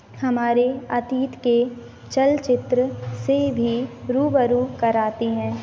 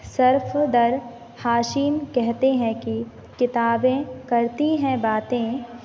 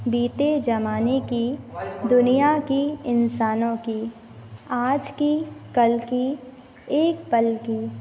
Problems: constant background noise